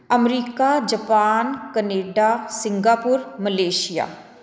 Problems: background conversations at intervals